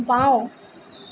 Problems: constant background noise